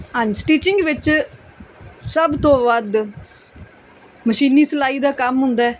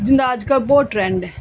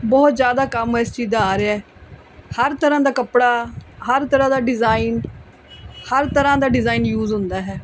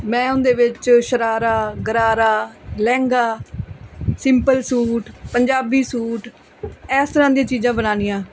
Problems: background conversations at intervals